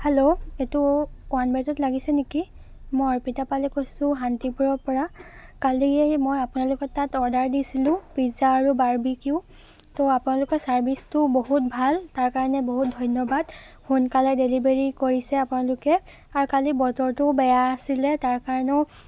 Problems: none marked